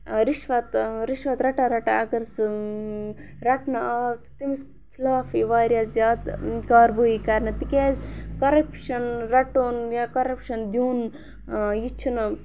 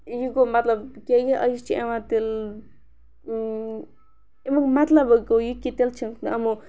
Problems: background sounds at intervals